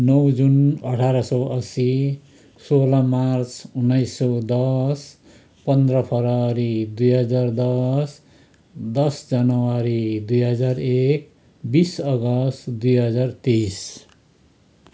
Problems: constant background noise, continuous background conversations